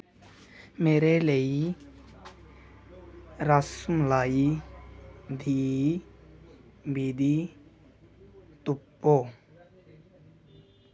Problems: none marked